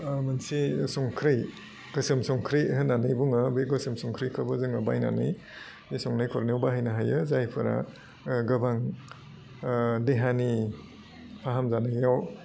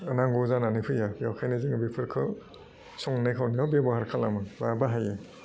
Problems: low volume